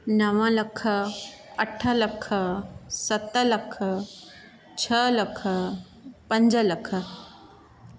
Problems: none marked